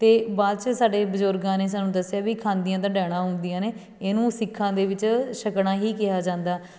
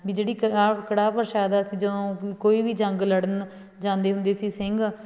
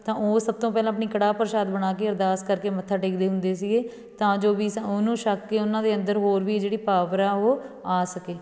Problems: background sounds at intervals